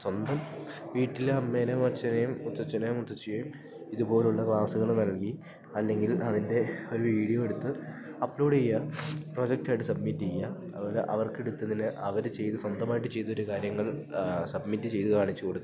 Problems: background sounds at intervals